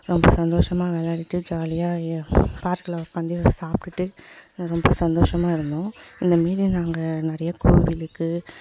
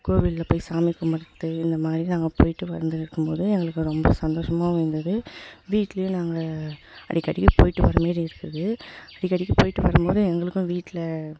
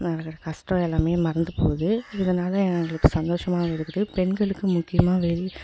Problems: constant background noise, echo